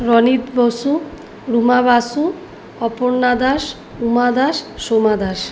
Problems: none marked